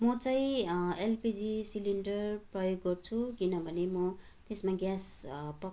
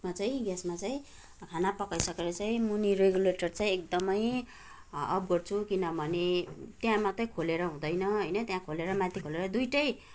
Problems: none marked